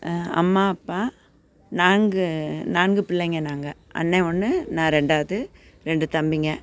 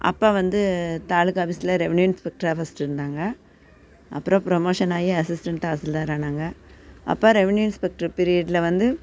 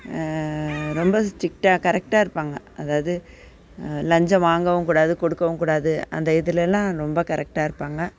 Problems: none marked